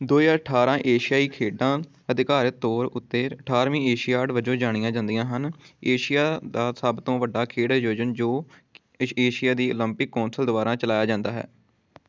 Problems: none marked